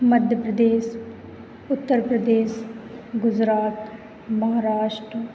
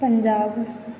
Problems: background conversations at intervals